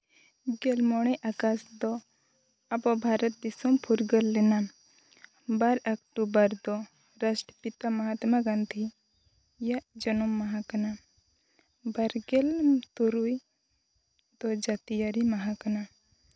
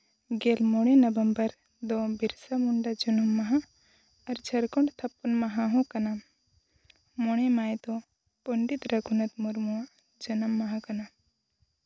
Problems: background sounds at intervals